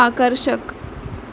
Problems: constant background noise